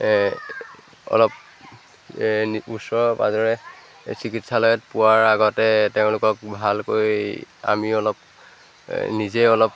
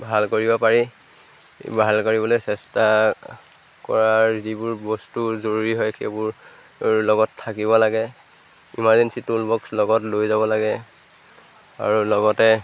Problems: none marked